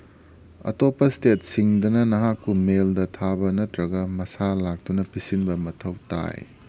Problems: none marked